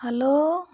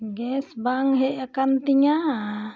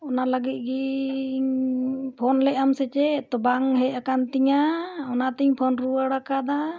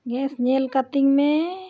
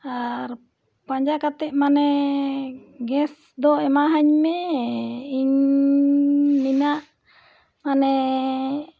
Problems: background conversations at intervals